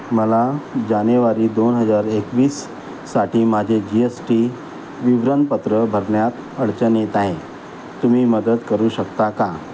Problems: constant background noise